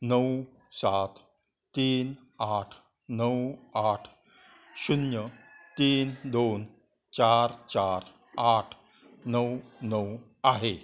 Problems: constant background noise, continuous background conversations